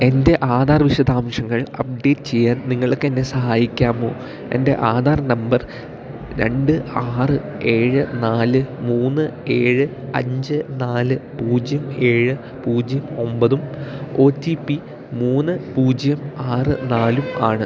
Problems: none marked